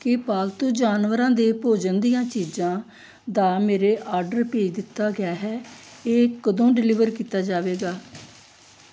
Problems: background sounds at intervals